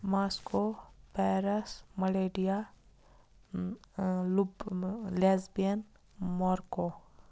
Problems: none marked